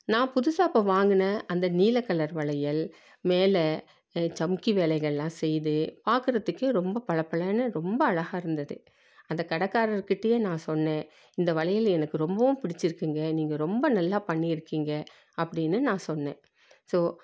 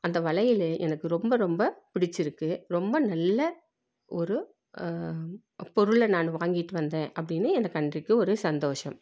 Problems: none marked